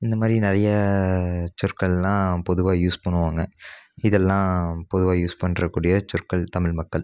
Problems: none marked